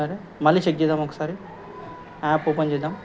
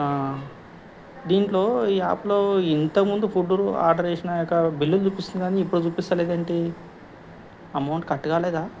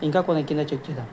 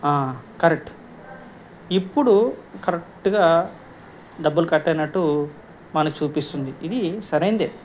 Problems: background conversations at intervals